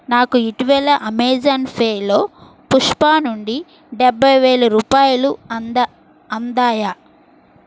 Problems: constant background noise